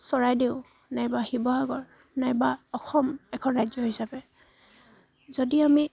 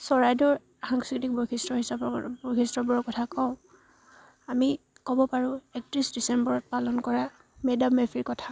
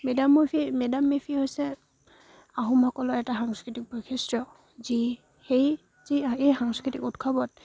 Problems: none marked